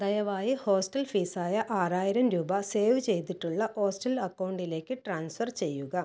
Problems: none marked